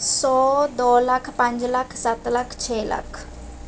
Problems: background sounds at intervals